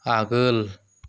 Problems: none marked